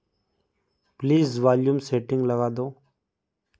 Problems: background sounds at intervals